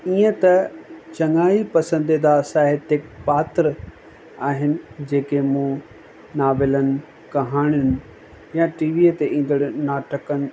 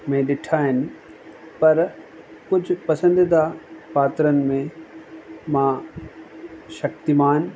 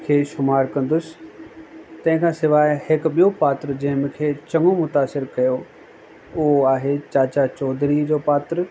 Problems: constant background noise, echo